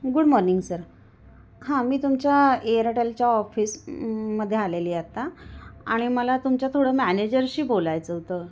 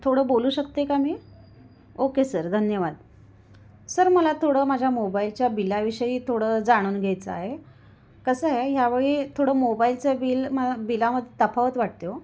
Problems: background sounds at intervals, echo